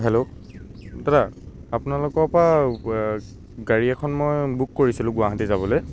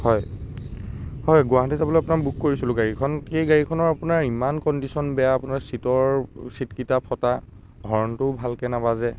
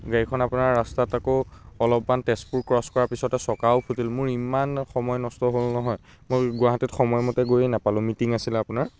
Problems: constant background noise